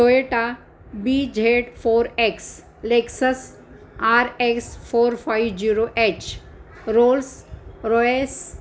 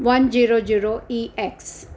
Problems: constant background noise